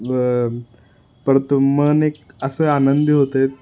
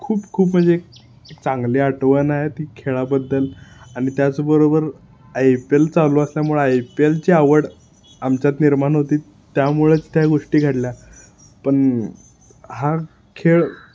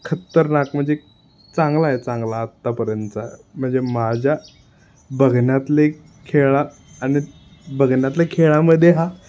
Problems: constant background noise